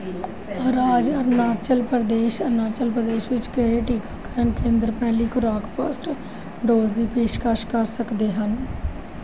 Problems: background sounds at intervals